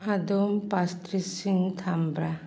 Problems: background conversations at intervals